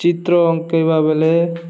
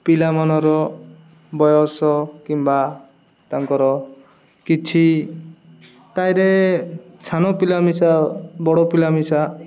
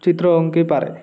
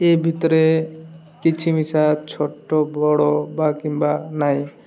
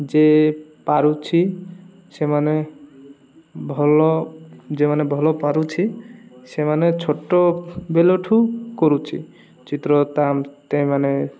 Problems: none marked